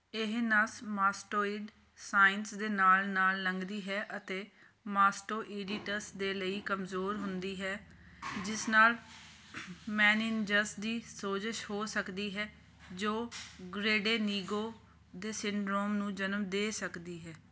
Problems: background sounds at intervals